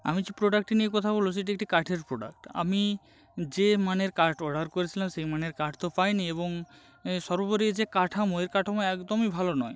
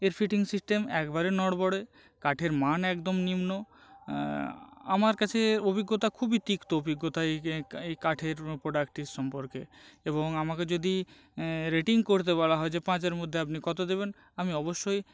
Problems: constant background noise